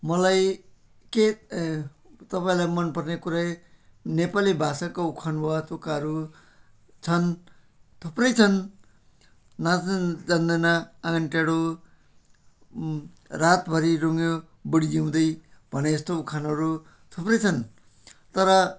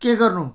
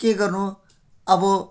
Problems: background sounds at intervals